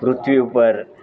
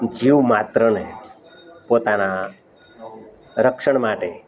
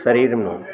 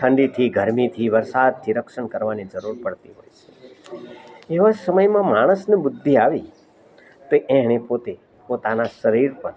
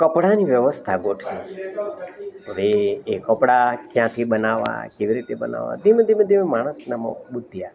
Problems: background sounds at intervals, background conversations at intervals